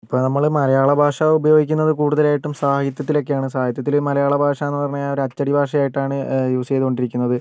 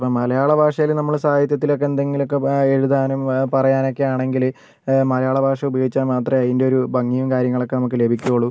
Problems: none marked